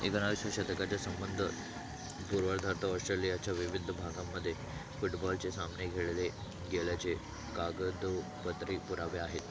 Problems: constant background noise, low volume